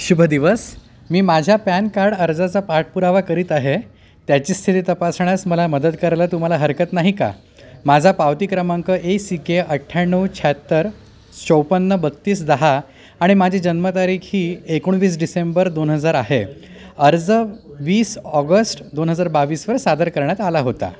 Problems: none marked